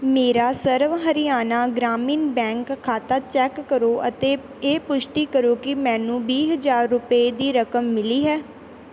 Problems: background sounds at intervals